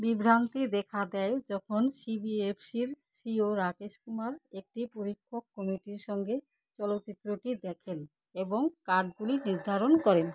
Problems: constant background noise